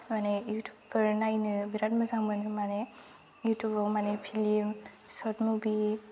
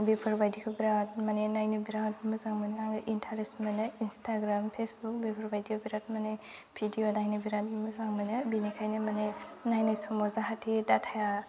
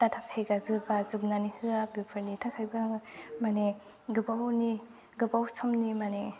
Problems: constant background noise